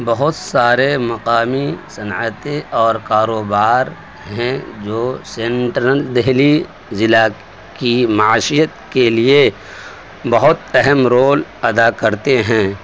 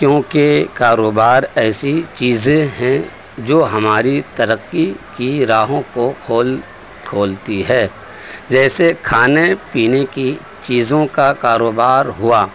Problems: constant background noise